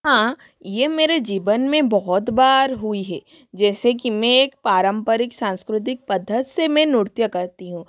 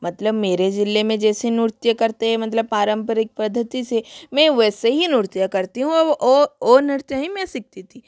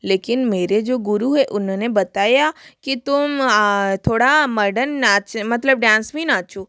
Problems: constant background noise